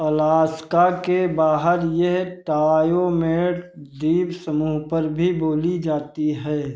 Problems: none marked